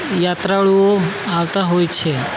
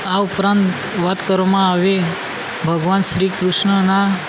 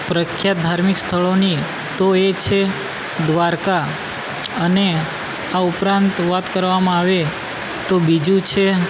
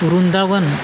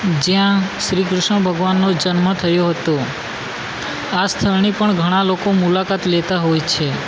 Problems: constant background noise